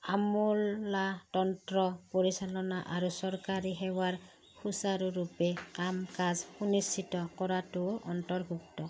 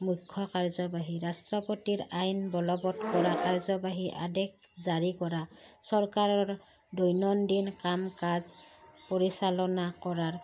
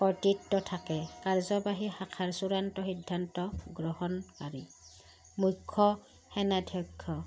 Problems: background sounds at intervals